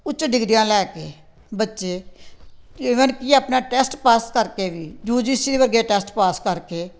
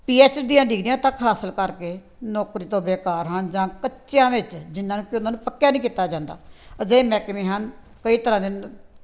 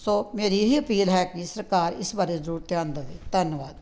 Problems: background sounds at intervals